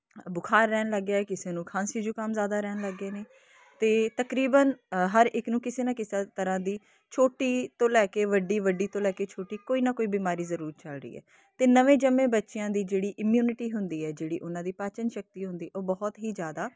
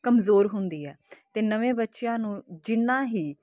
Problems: constant background noise